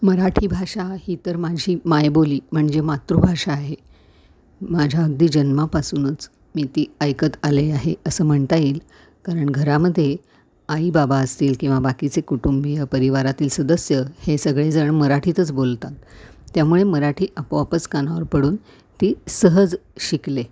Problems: none marked